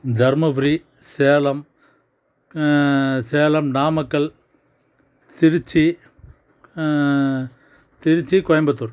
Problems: background conversations at intervals